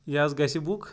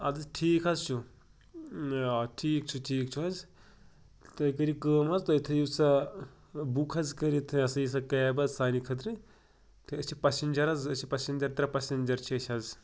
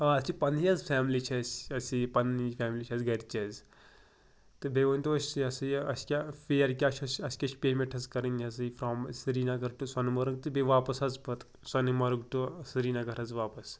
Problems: none marked